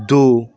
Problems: none marked